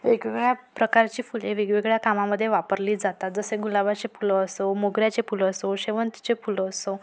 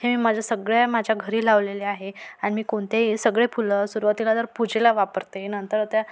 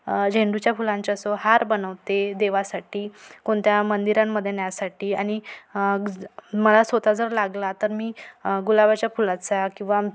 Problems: none marked